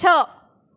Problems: echo